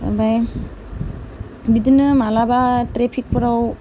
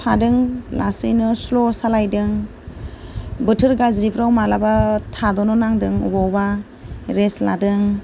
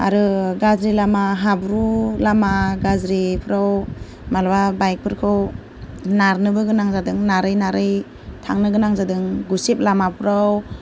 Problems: none marked